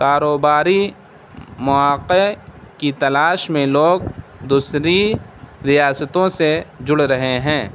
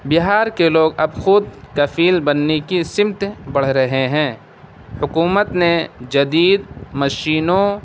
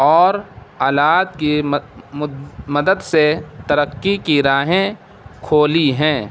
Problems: constant background noise